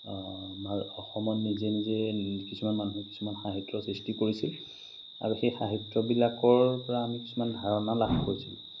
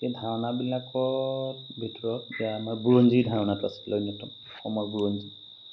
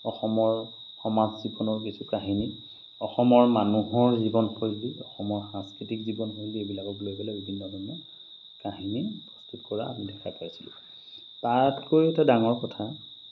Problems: constant background noise, background conversations at intervals